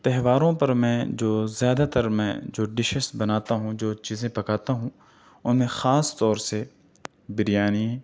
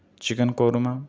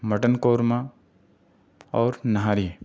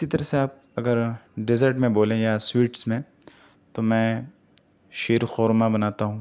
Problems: none marked